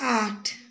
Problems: constant background noise